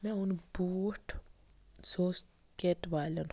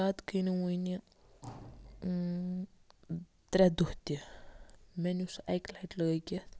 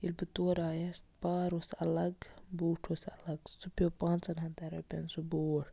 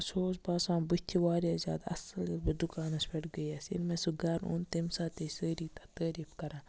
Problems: background sounds at intervals